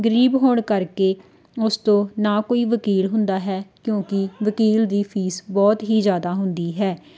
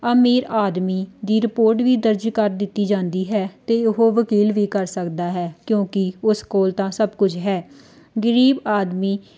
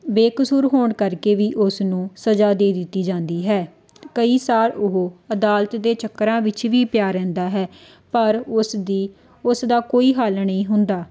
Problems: none marked